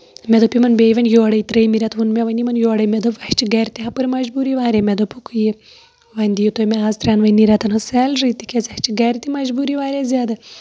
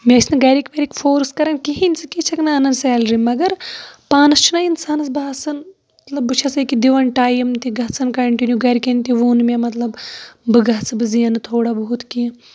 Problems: background sounds at intervals